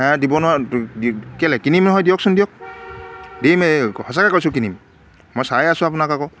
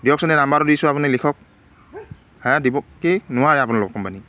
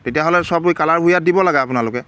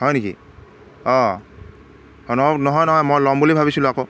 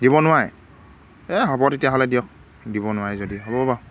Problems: background sounds at intervals